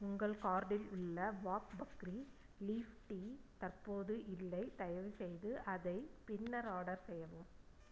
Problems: low volume